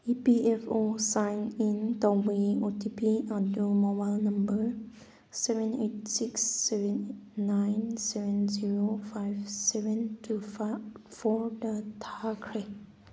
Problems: background sounds at intervals